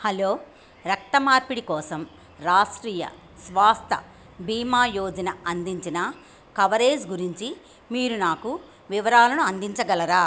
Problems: none marked